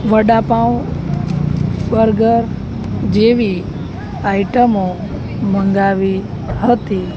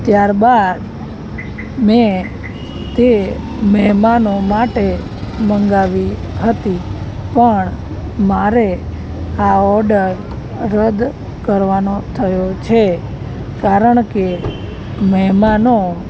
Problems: none marked